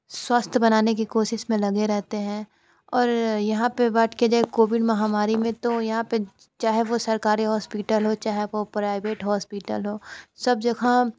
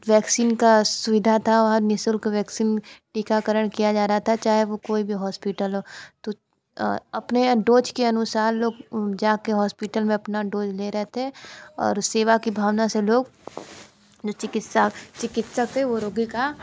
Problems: constant background noise